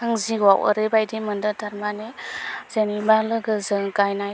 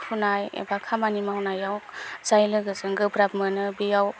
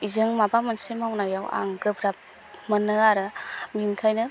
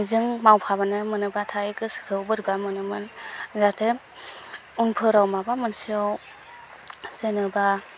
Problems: constant background noise